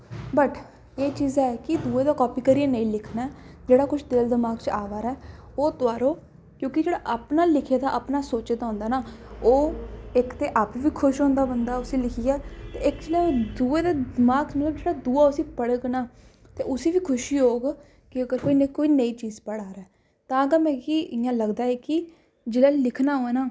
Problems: background sounds at intervals